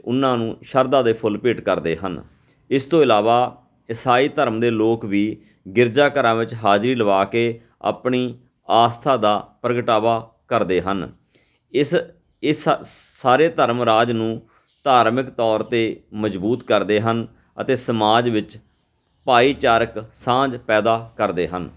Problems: background sounds at intervals, background conversations at intervals